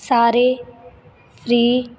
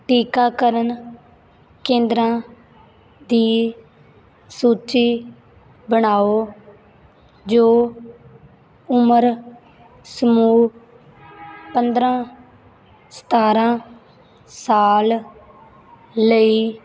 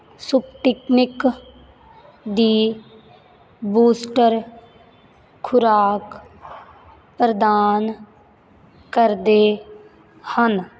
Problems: background sounds at intervals